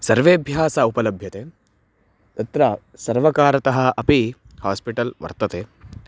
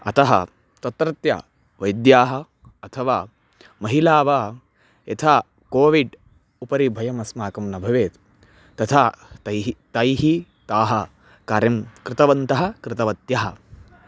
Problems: background sounds at intervals